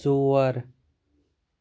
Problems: none marked